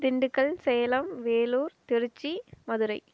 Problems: none marked